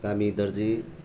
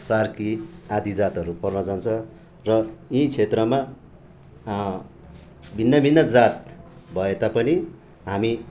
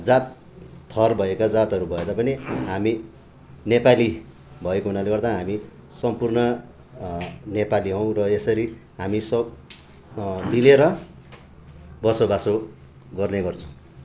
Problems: continuous background conversations